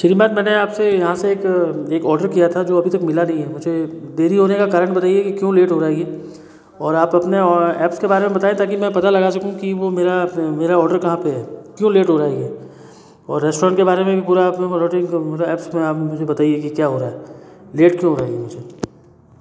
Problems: constant background noise, echo